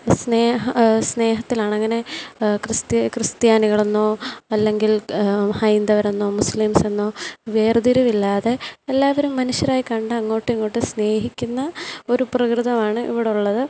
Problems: constant background noise, low volume